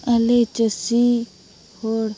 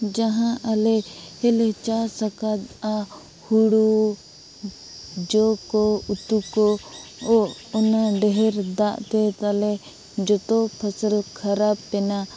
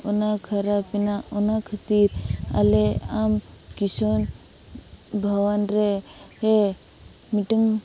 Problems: none marked